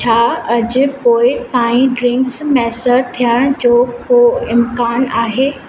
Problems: constant background noise, echo